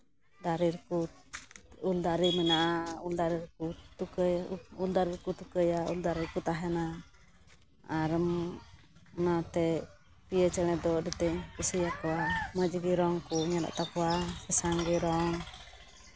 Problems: background sounds at intervals, background conversations at intervals